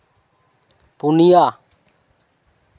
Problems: constant background noise